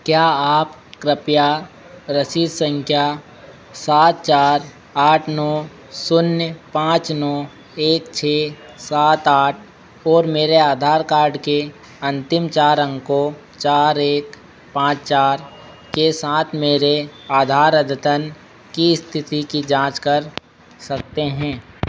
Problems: constant background noise